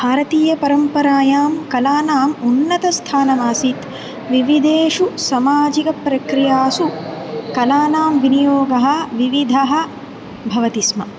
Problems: constant background noise